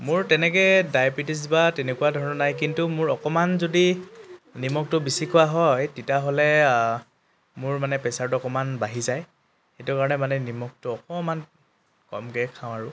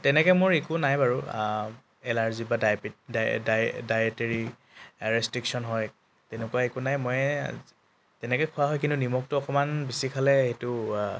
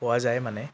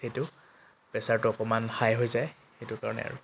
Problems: constant background noise